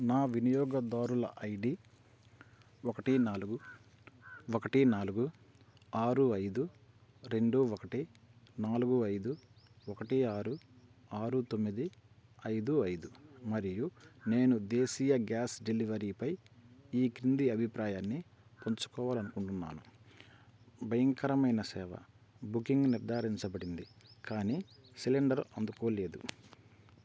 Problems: none marked